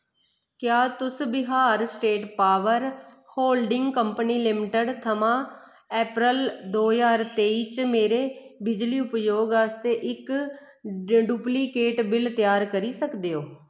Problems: echo